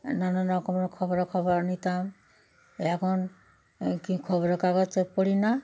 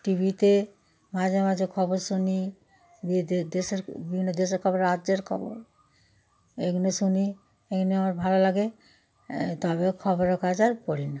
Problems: background sounds at intervals